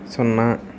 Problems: constant background noise